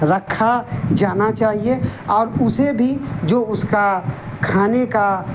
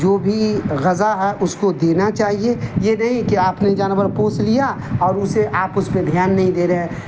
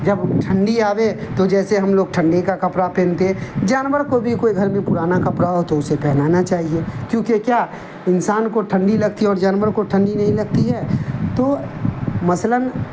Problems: constant background noise